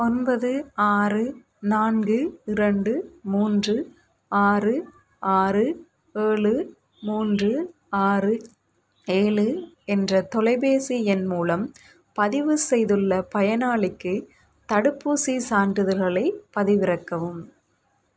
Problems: none marked